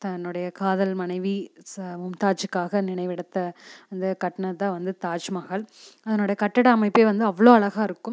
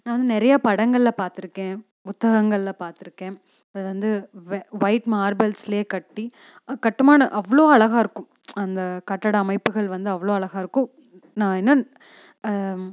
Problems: none marked